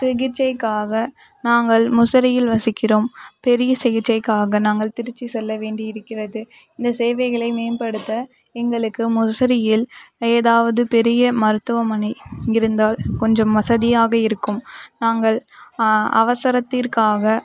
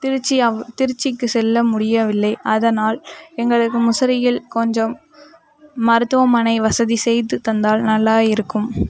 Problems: background conversations at intervals